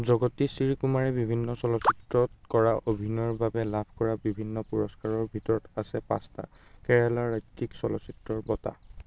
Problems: background sounds at intervals